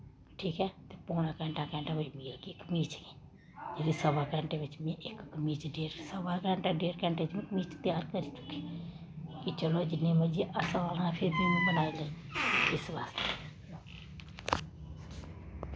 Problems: constant background noise